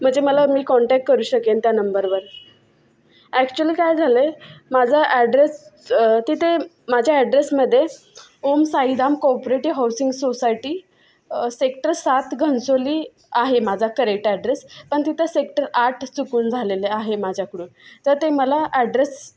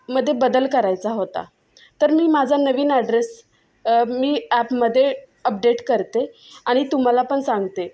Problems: constant background noise, continuous background conversations